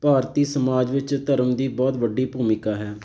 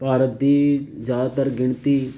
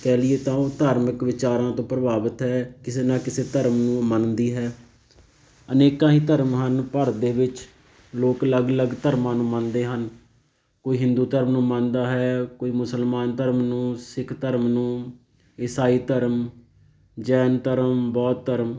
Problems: background sounds at intervals